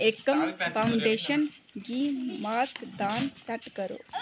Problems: background sounds at intervals